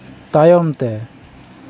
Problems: background sounds at intervals, background conversations at intervals